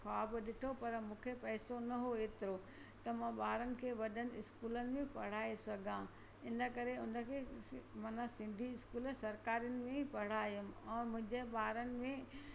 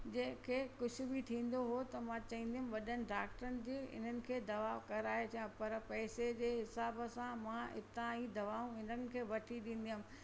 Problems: constant background noise